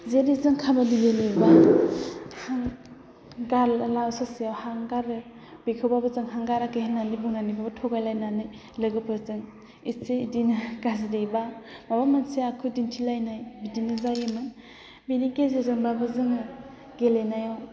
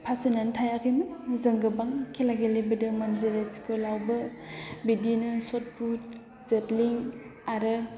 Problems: none marked